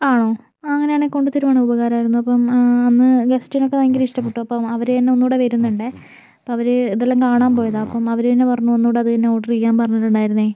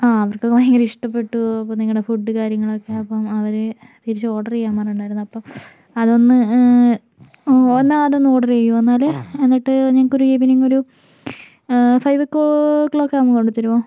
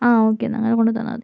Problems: constant background noise